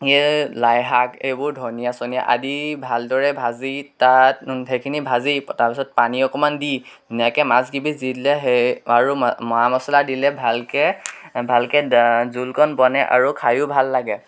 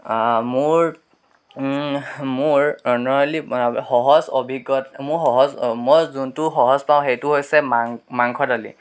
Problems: background sounds at intervals, background conversations at intervals